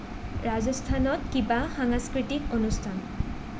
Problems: none marked